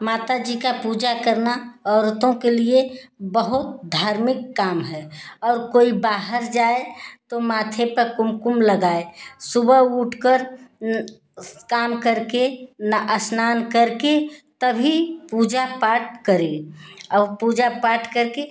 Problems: constant background noise